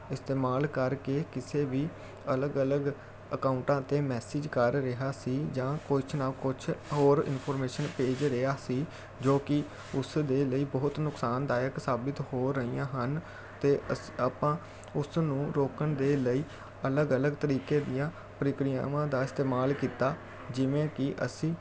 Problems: none marked